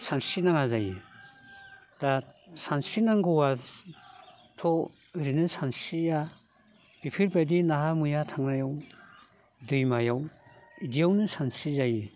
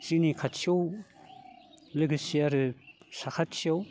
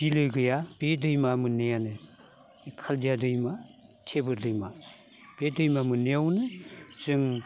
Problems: none marked